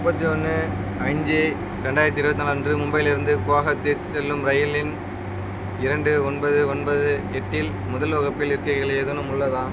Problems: constant background noise